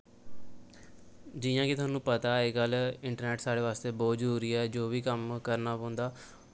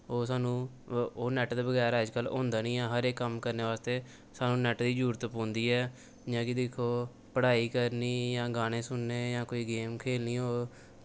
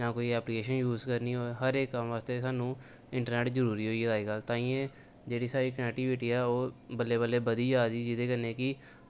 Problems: none marked